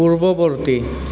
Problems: constant background noise